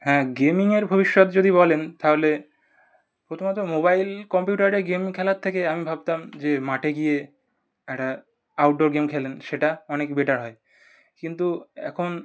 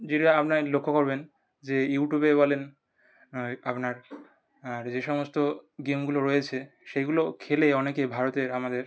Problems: none marked